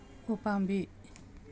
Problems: none marked